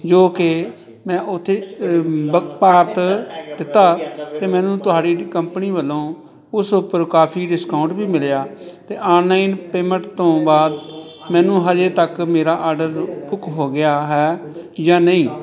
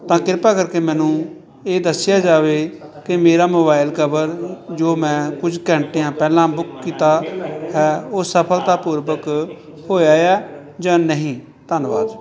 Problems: continuous background conversations